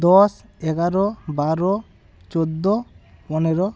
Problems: none marked